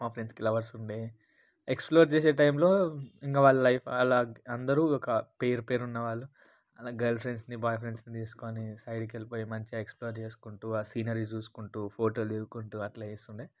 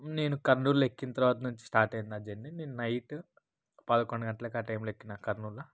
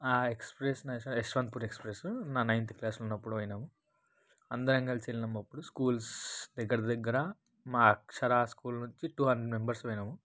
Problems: none marked